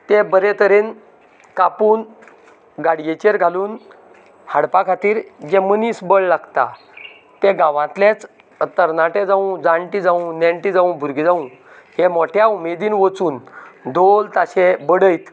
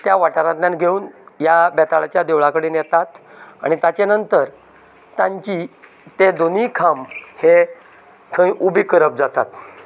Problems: none marked